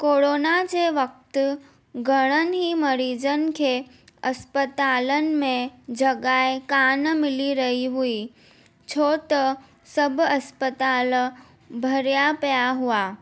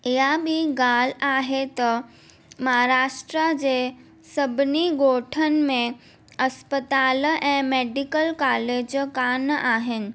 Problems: none marked